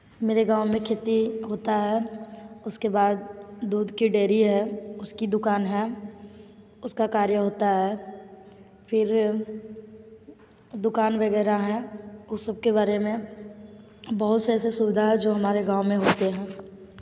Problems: background sounds at intervals